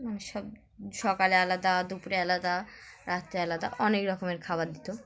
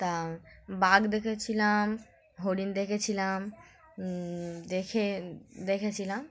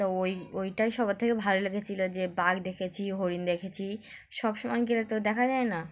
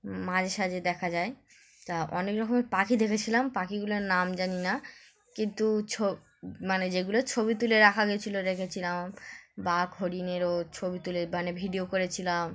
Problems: none marked